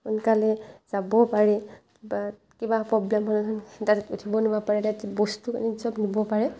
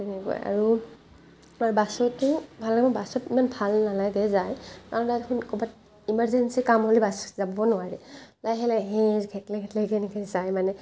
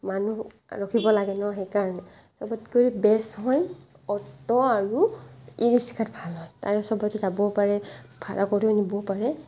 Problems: none marked